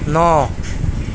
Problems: constant background noise